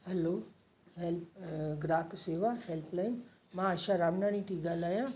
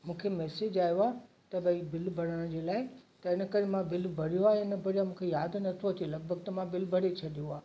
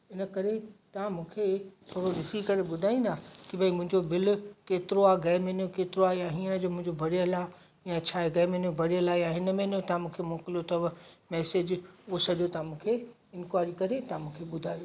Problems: constant background noise, echo